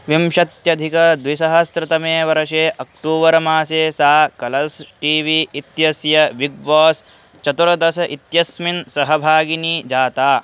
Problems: constant background noise